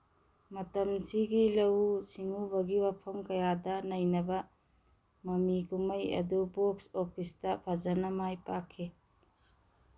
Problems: none marked